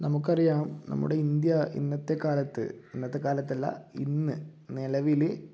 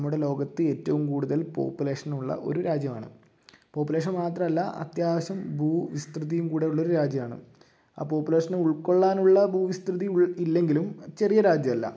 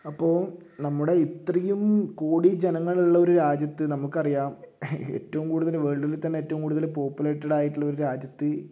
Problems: low volume